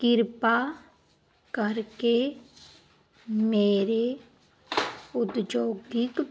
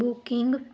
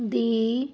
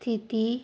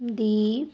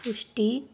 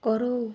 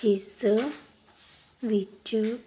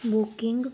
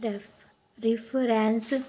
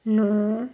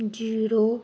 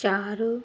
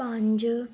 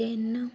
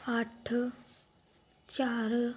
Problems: none marked